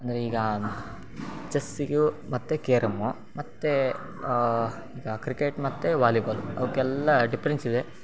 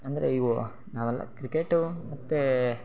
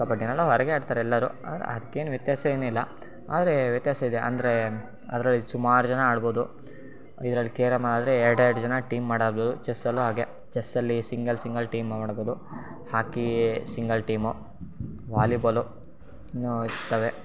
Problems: background sounds at intervals